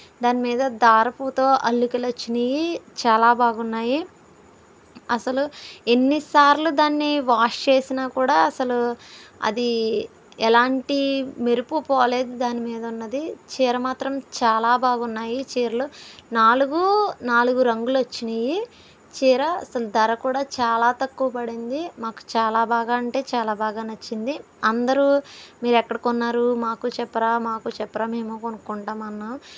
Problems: none marked